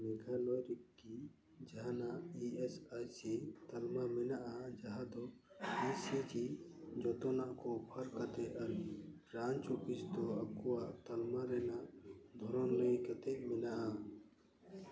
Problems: background conversations at intervals, echo